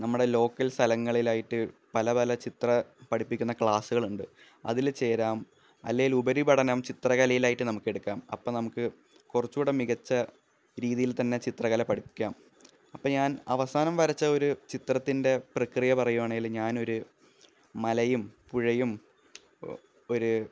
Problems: low volume